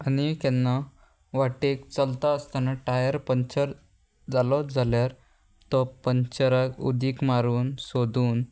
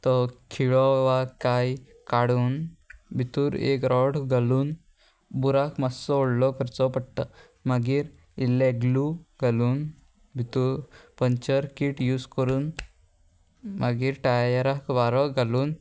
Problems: constant background noise